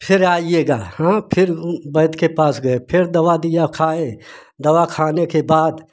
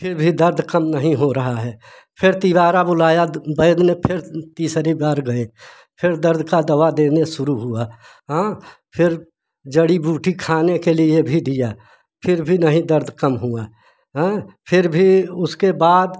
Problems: none marked